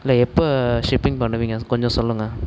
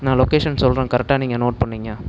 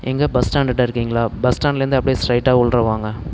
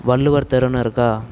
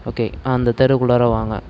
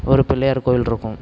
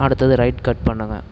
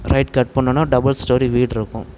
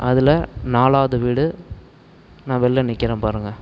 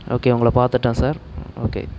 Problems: constant background noise